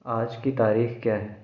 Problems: background sounds at intervals, echo